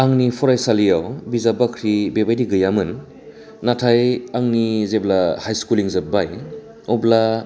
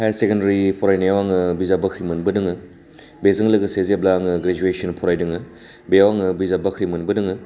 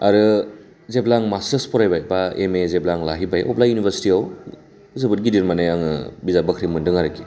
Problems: none marked